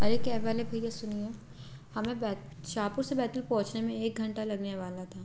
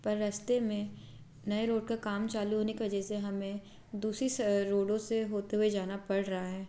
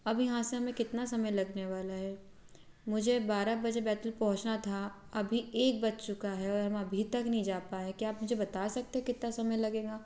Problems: background sounds at intervals